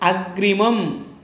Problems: none marked